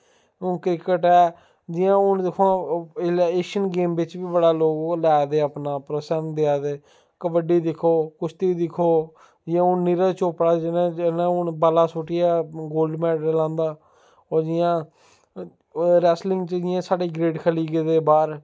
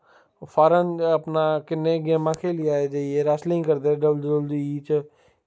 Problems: none marked